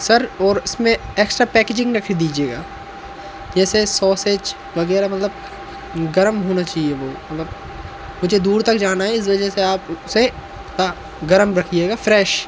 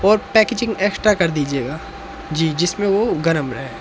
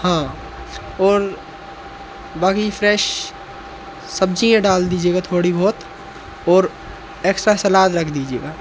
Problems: constant background noise